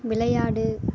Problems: background sounds at intervals